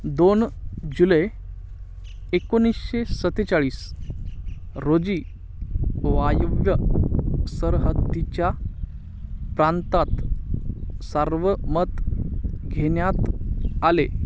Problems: constant background noise